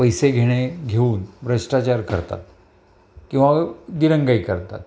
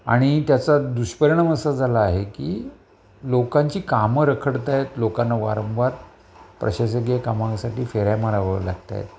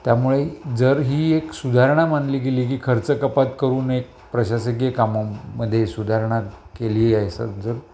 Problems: background sounds at intervals